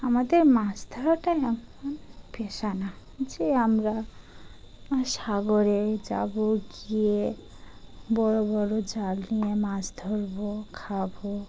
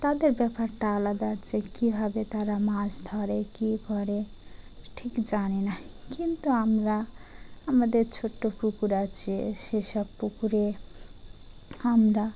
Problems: none marked